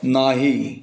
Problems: background sounds at intervals